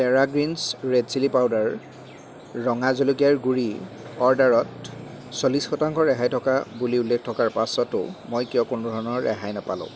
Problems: none marked